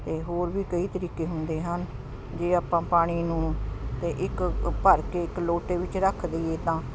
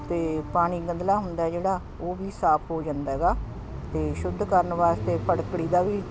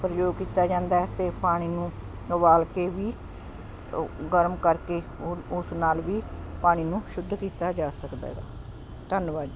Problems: constant background noise